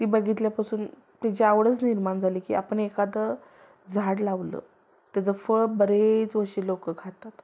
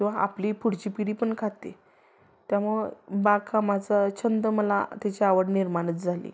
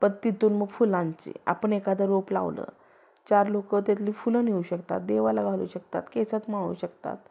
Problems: background sounds at intervals